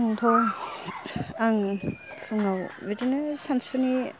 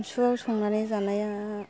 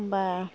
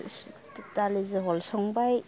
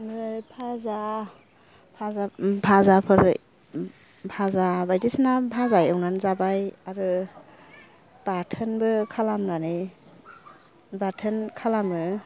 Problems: low volume